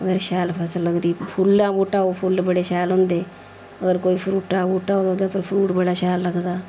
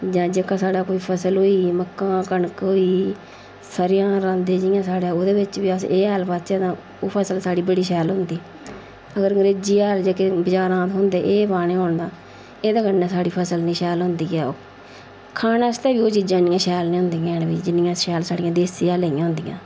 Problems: none marked